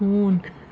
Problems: constant background noise